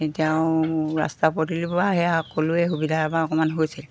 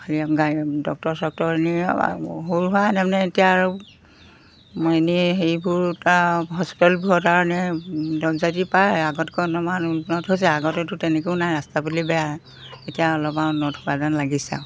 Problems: constant background noise